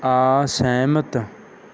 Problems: none marked